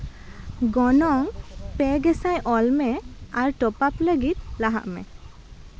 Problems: constant background noise